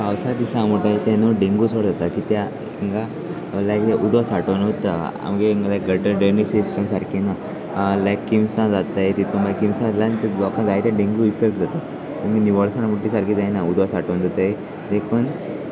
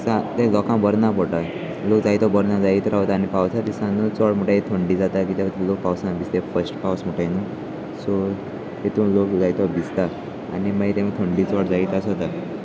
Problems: constant background noise, continuous background conversations